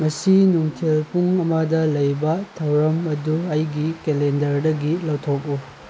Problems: background sounds at intervals